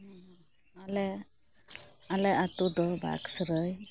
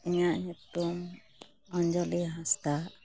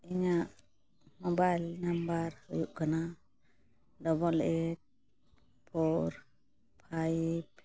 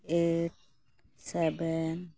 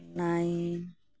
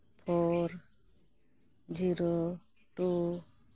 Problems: constant background noise